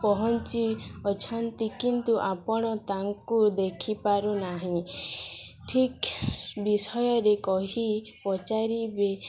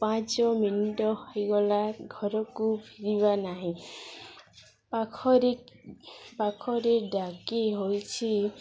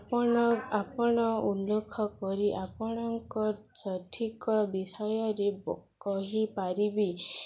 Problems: constant background noise, continuous background conversations